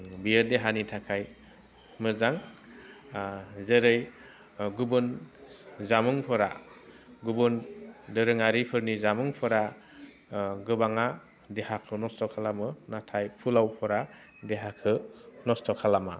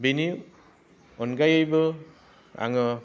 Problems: low volume